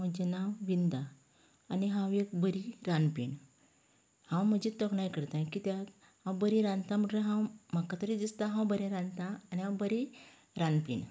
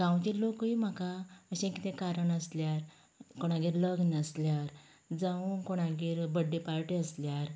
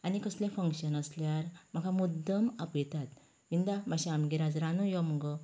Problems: background sounds at intervals